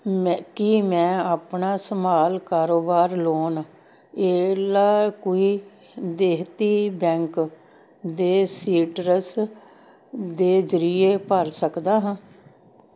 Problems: none marked